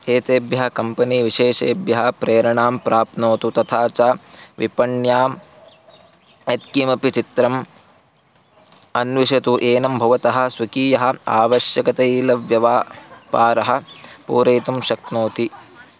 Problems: none marked